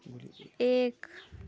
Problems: low volume